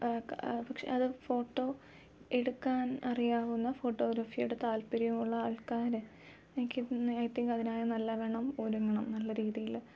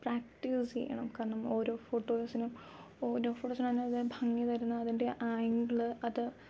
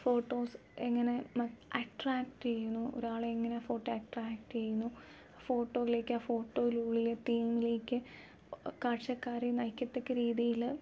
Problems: none marked